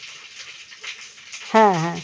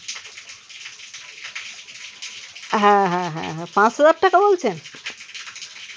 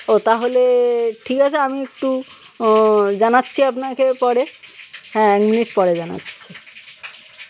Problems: constant background noise, background conversations at intervals